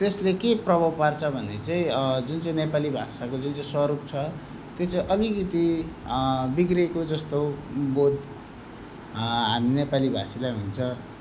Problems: none marked